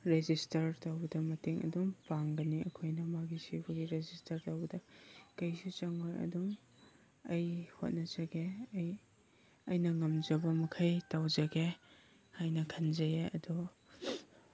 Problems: background sounds at intervals